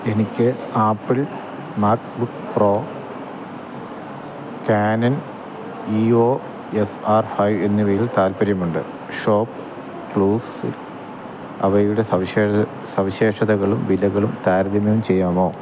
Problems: constant background noise